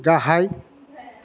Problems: none marked